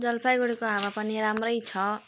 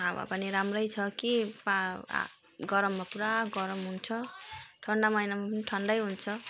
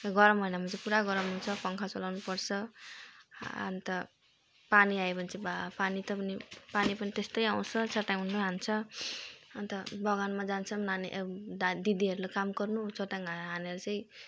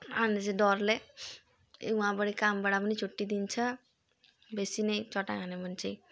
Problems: constant background noise, continuous background conversations